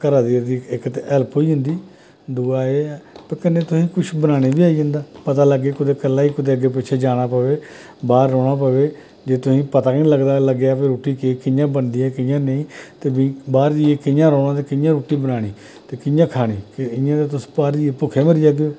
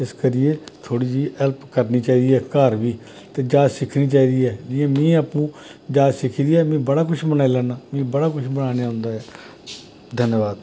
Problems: none marked